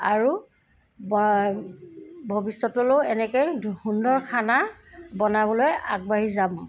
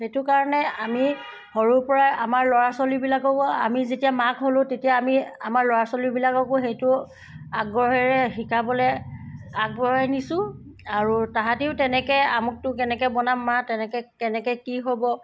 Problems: background sounds at intervals